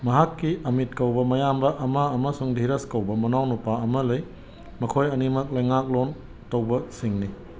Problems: background sounds at intervals